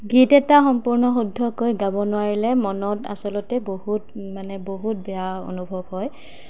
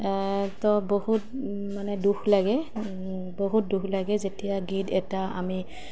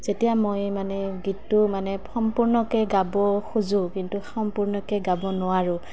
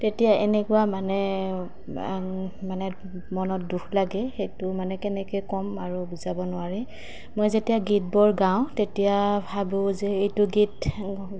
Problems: none marked